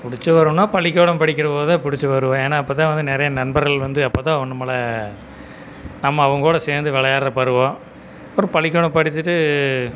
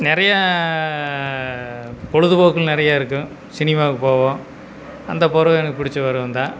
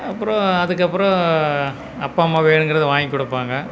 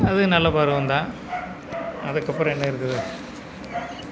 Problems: background sounds at intervals